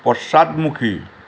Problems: constant background noise